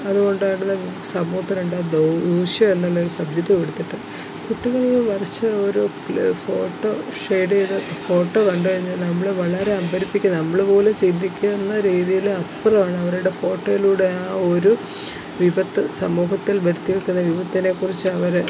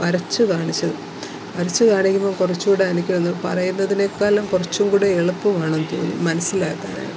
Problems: constant background noise